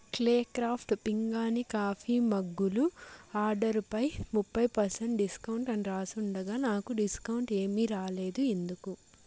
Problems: constant background noise